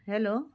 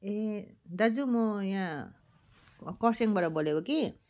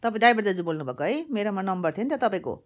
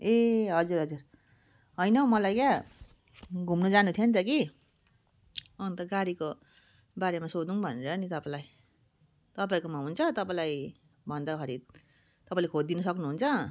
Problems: continuous background conversations